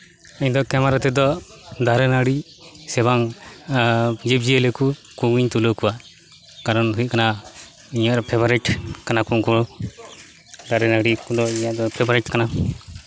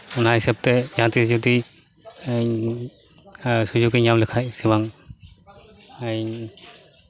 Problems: constant background noise, background conversations at intervals